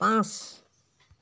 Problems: none marked